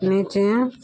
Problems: constant background noise